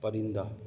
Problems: background sounds at intervals